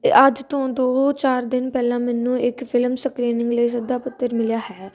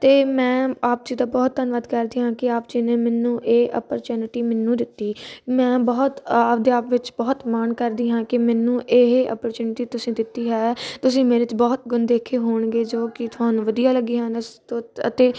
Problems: constant background noise